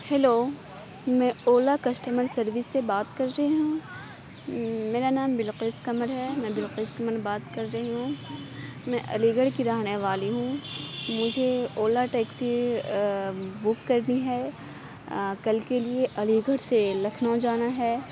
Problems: constant background noise